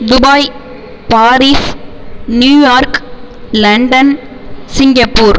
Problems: constant background noise